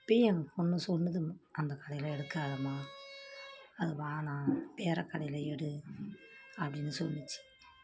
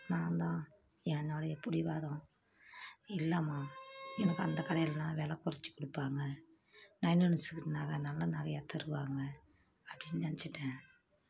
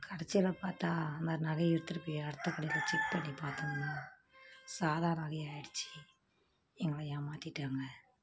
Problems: constant background noise